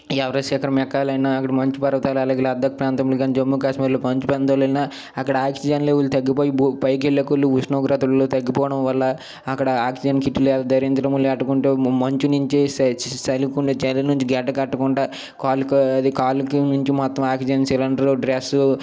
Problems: none marked